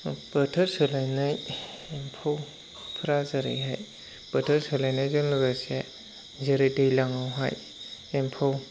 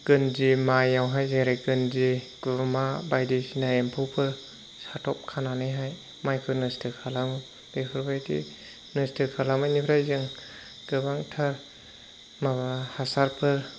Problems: constant background noise